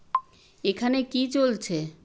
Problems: constant background noise